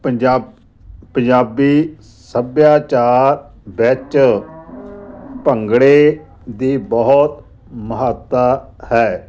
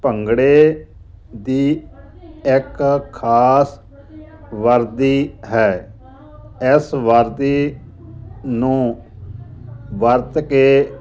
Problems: none marked